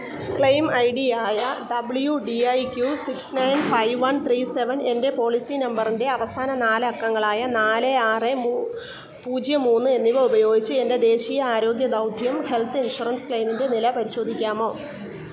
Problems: none marked